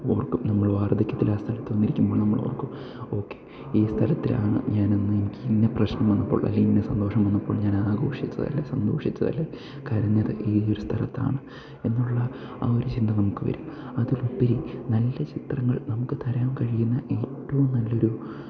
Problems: background sounds at intervals